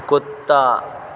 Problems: constant background noise